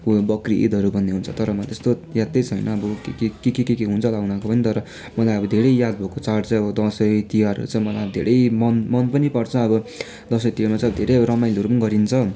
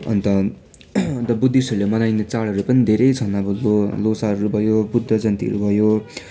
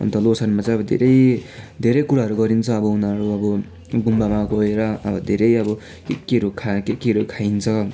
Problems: constant background noise, continuous background conversations